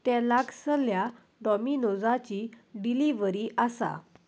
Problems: none marked